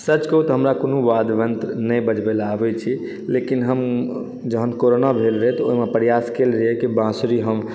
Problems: none marked